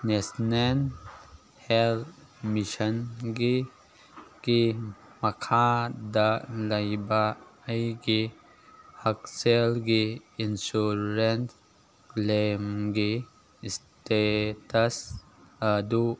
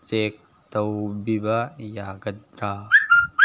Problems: background conversations at intervals